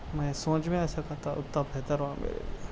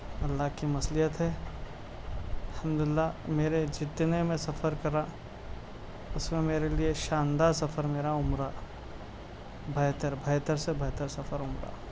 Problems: constant background noise, low volume